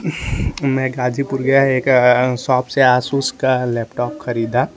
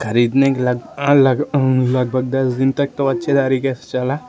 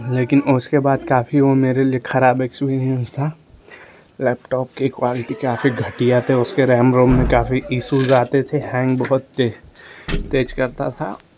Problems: constant background noise